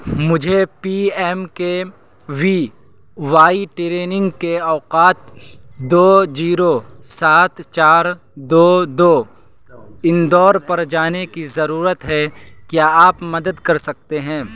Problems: constant background noise